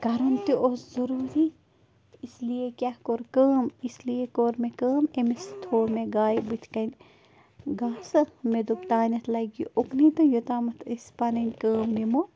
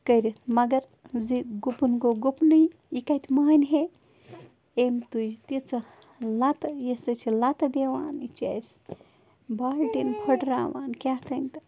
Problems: constant background noise